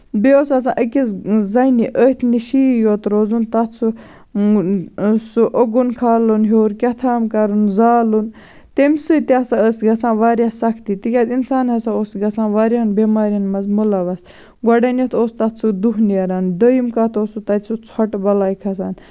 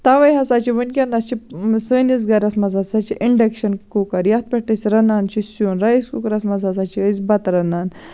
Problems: none marked